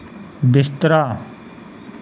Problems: none marked